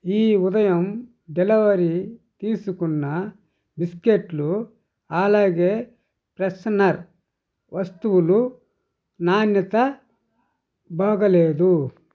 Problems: none marked